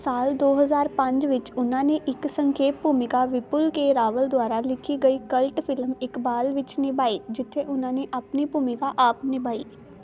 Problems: none marked